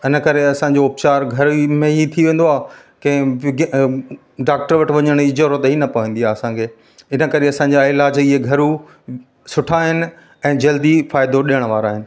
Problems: constant background noise